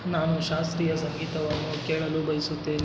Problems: constant background noise